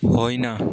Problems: continuous background conversations